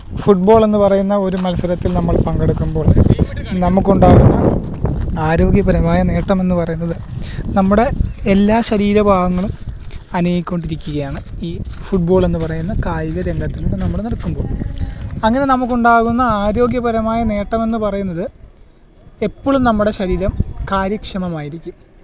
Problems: constant background noise